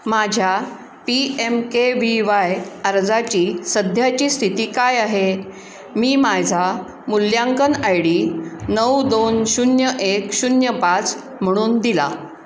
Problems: constant background noise